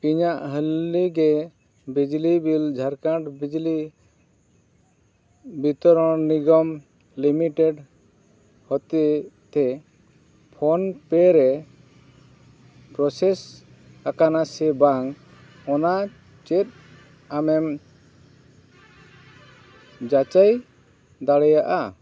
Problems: background sounds at intervals